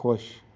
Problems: background sounds at intervals